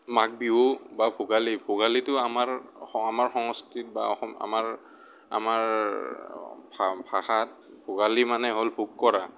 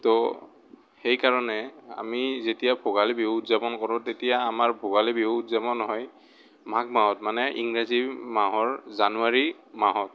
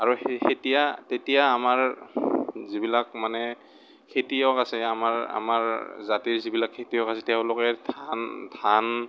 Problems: background sounds at intervals